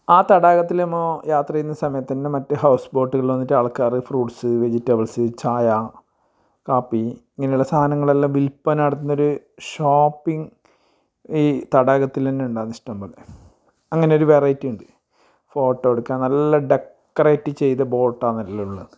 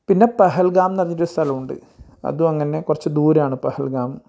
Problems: none marked